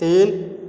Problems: constant background noise